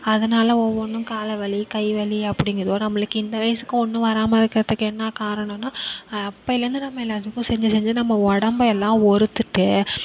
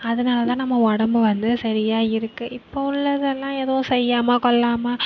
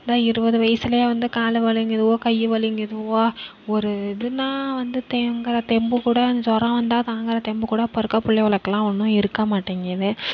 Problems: none marked